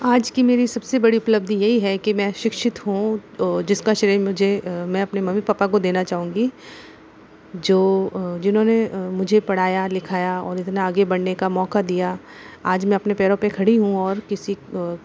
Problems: constant background noise